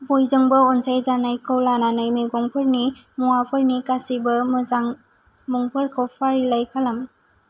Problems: low volume